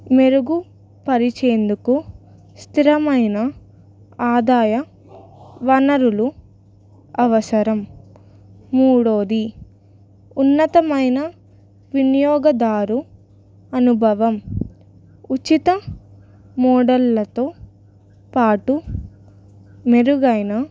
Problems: background conversations at intervals